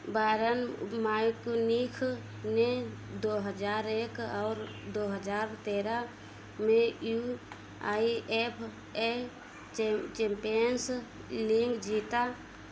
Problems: constant background noise